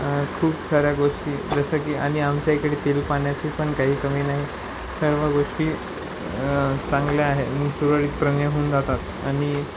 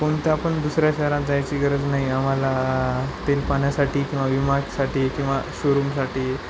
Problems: constant background noise